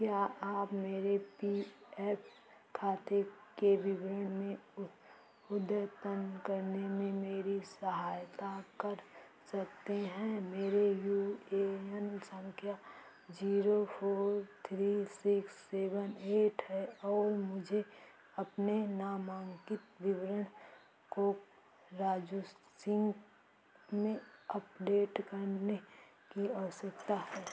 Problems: constant background noise, echo